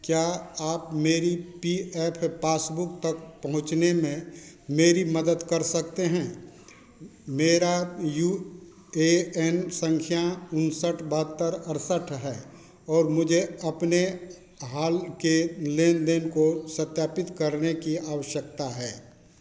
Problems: constant background noise